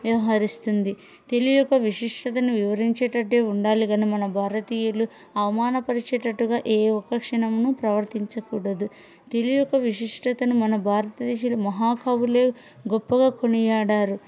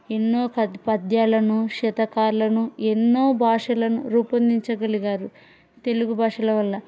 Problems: background conversations at intervals